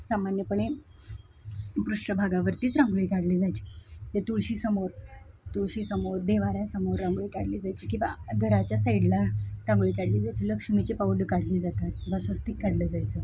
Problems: constant background noise